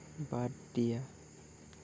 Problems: low volume